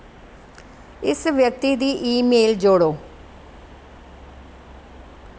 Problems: constant background noise